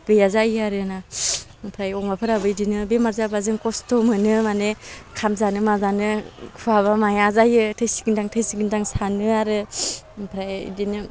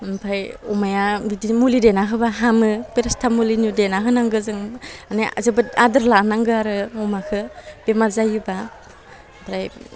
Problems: none marked